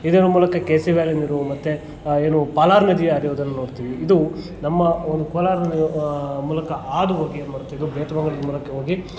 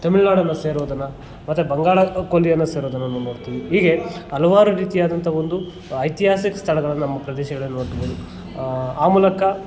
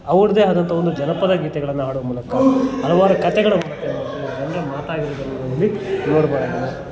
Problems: constant background noise, continuous background conversations